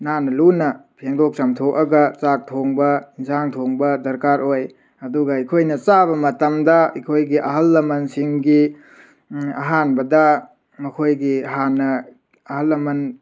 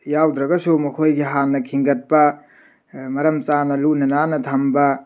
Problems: background sounds at intervals